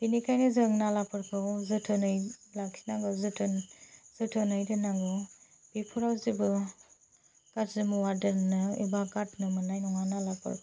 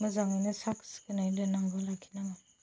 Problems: low volume